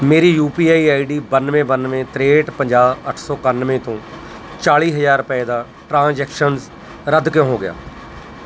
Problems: none marked